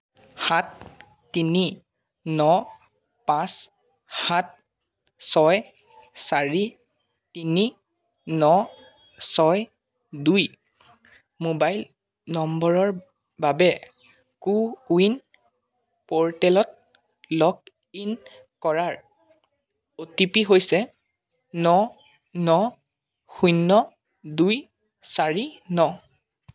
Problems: constant background noise